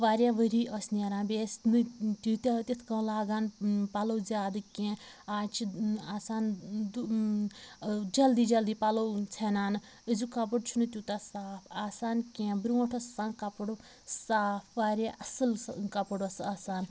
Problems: background sounds at intervals, background conversations at intervals